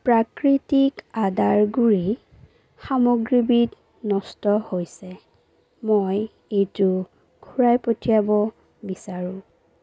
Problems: background sounds at intervals